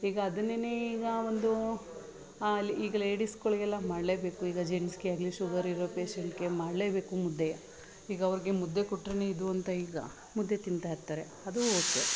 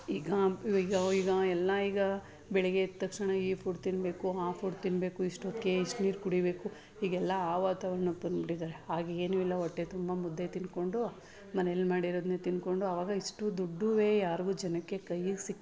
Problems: background sounds at intervals